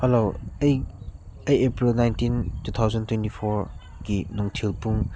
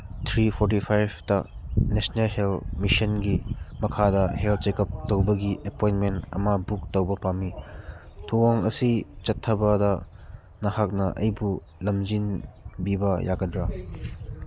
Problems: background sounds at intervals